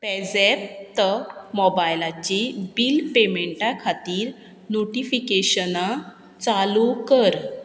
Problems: constant background noise